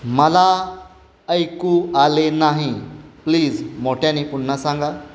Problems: constant background noise